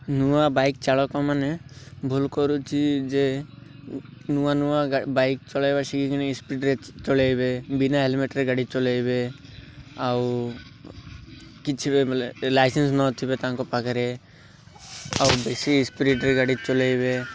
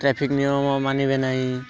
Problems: none marked